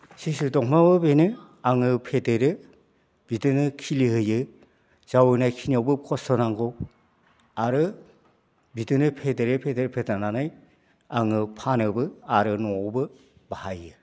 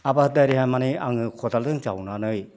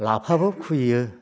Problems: constant background noise